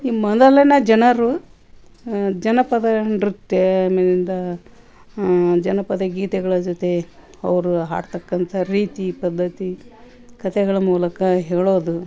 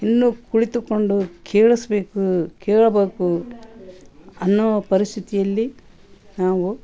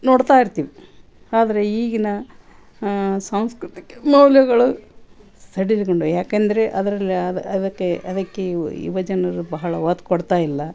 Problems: none marked